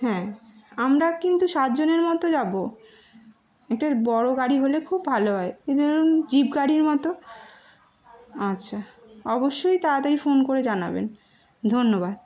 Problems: background sounds at intervals